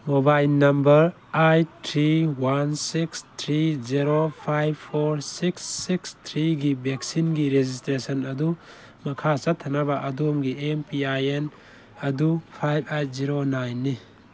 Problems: background sounds at intervals